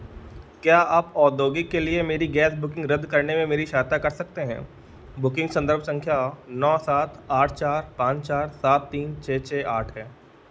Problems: none marked